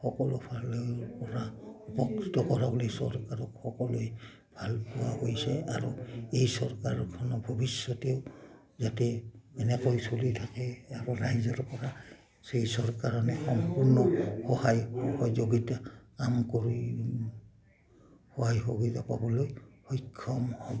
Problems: none marked